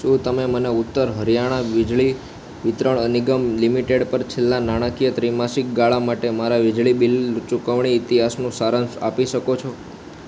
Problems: constant background noise